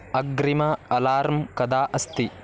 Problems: constant background noise